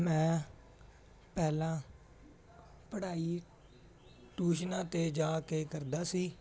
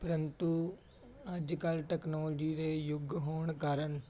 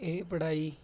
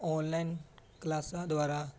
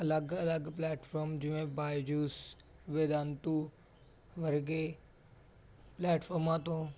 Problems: none marked